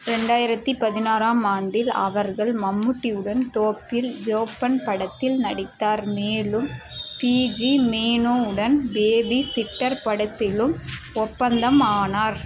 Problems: none marked